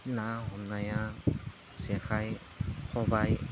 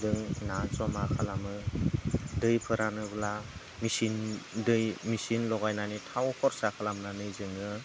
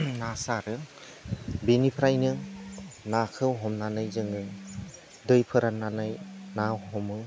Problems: constant background noise